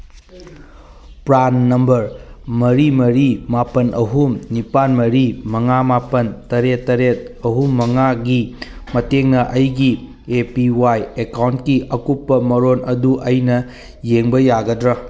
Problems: none marked